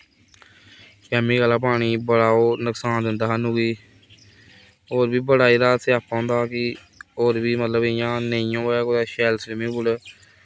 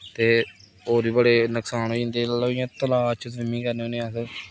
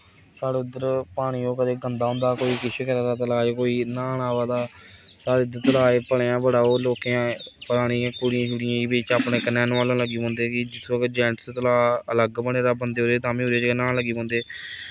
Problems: none marked